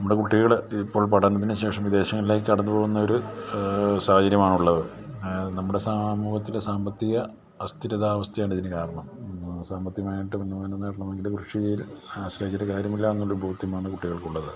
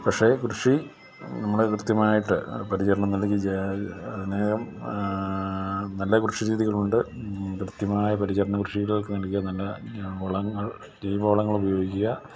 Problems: low volume